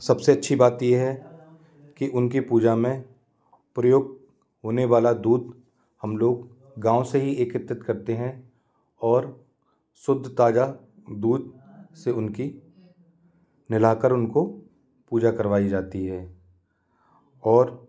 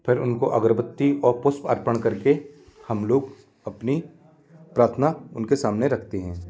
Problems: background conversations at intervals